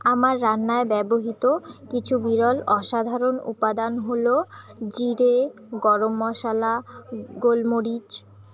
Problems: none marked